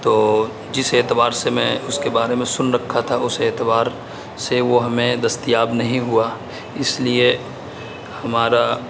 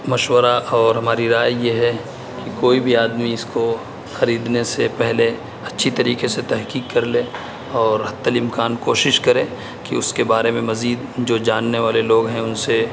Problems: constant background noise